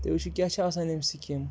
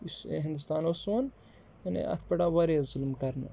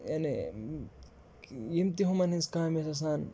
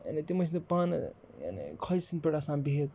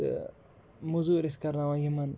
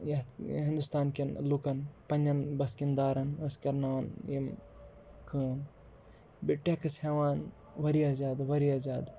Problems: background sounds at intervals